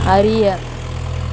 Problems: background sounds at intervals